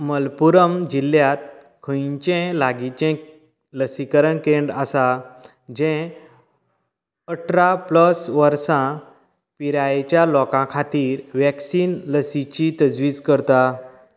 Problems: background conversations at intervals